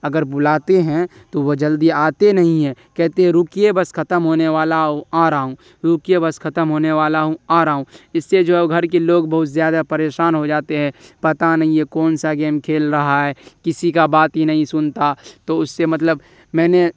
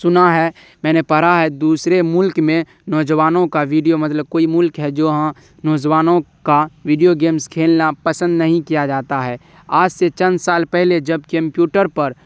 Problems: none marked